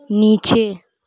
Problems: none marked